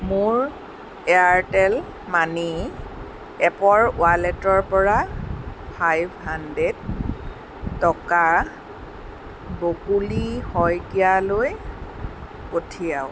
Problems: constant background noise